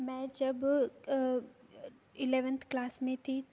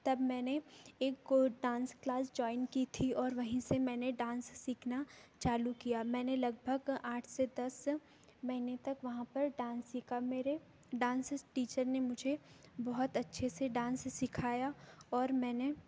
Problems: background sounds at intervals